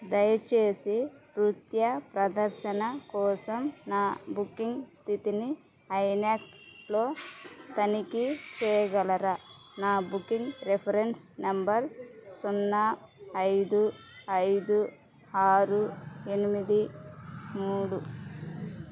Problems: constant background noise